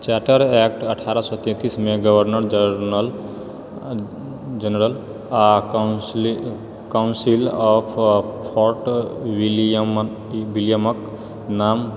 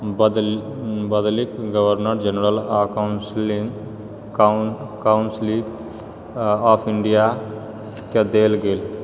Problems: background sounds at intervals